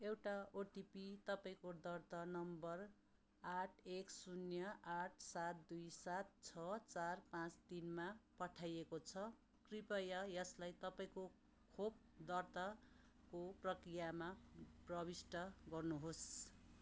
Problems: constant background noise